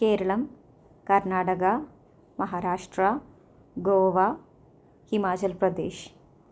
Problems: low volume